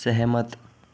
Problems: constant background noise